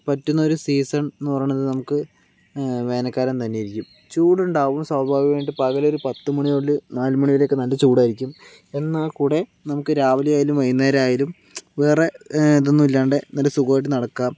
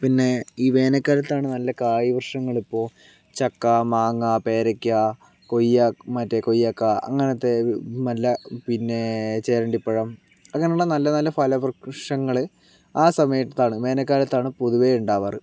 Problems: none marked